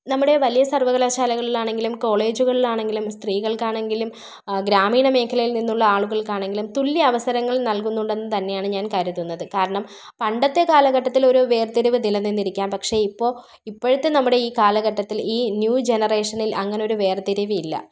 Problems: none marked